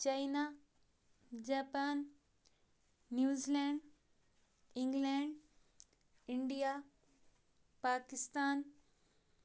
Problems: none marked